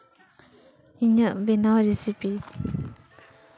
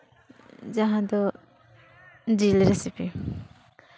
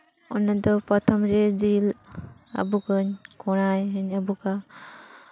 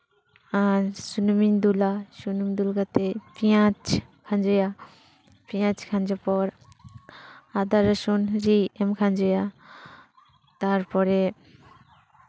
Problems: background conversations at intervals